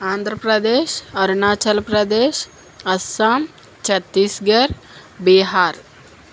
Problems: constant background noise